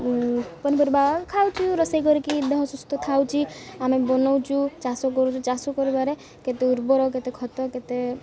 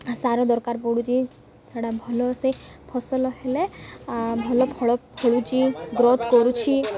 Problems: constant background noise, continuous background conversations